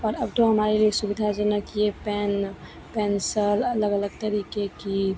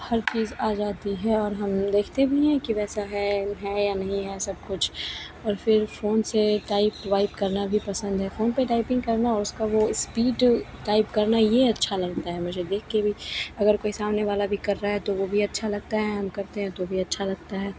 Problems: constant background noise, continuous background conversations